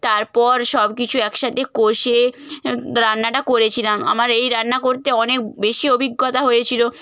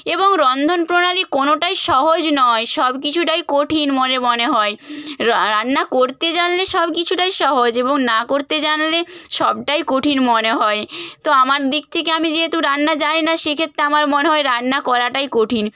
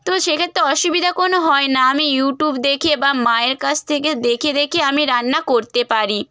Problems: none marked